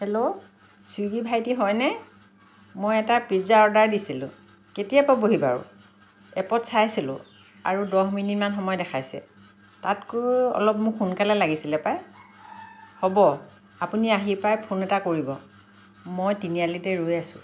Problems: none marked